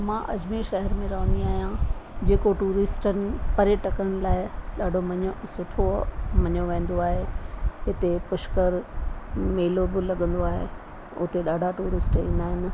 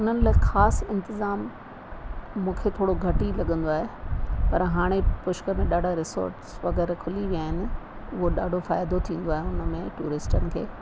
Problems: constant background noise